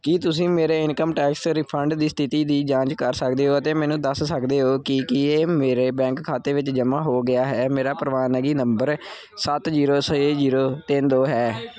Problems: continuous background conversations